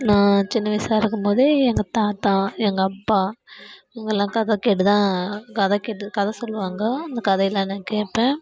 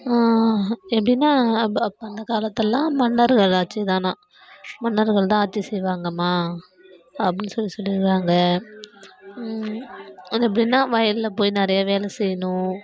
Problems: background sounds at intervals